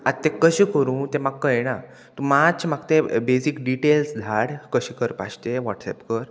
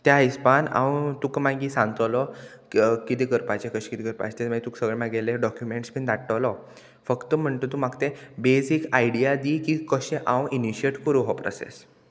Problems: constant background noise